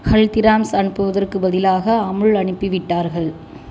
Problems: constant background noise